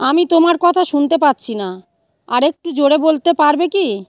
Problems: none marked